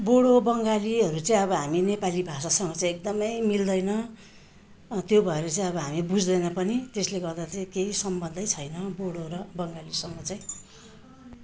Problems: continuous background conversations